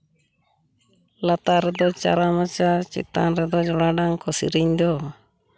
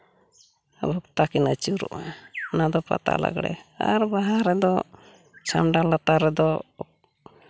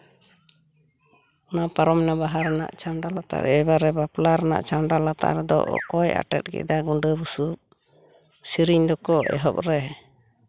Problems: background sounds at intervals